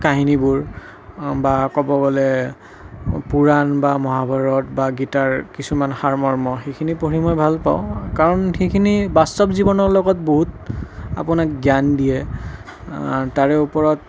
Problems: none marked